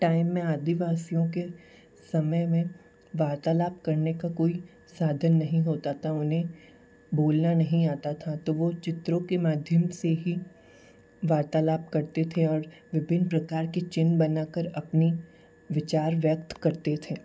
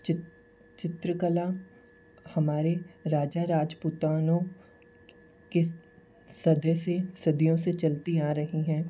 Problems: none marked